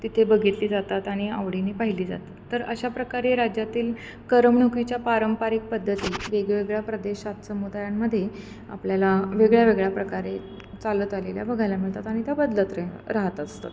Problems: none marked